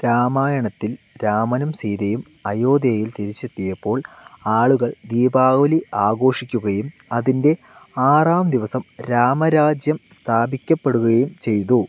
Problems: constant background noise